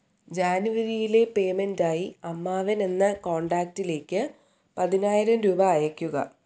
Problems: none marked